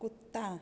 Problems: none marked